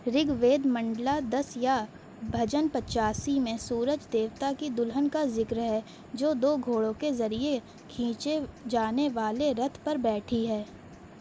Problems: none marked